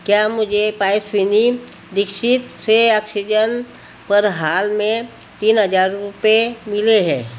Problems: none marked